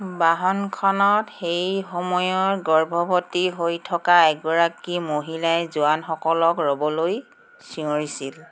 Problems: none marked